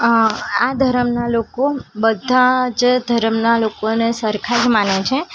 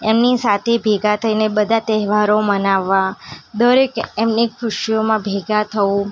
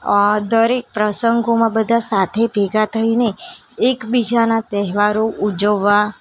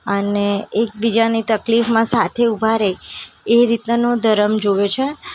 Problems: constant background noise